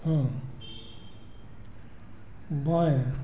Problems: background sounds at intervals